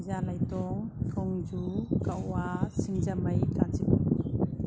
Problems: constant background noise